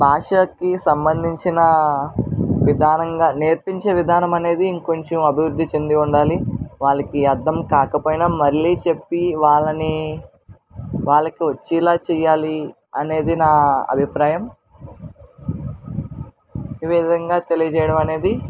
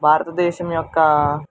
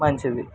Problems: none marked